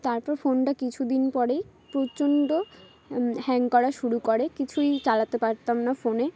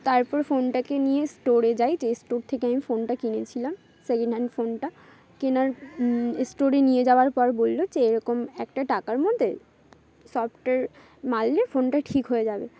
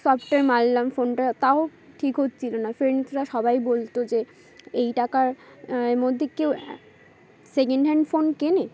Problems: constant background noise, background conversations at intervals